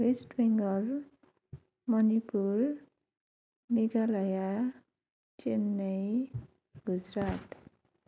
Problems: none marked